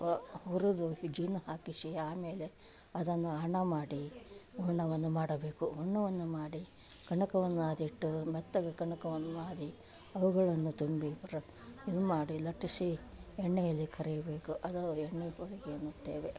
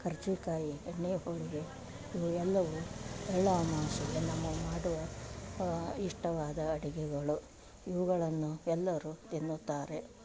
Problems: none marked